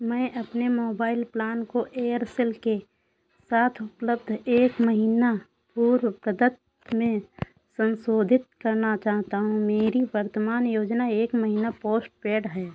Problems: constant background noise